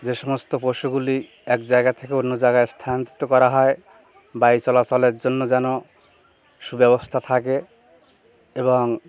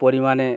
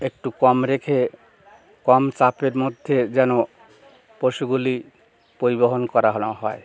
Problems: constant background noise, background conversations at intervals